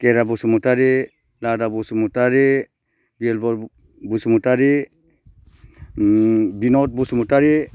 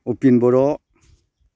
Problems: low volume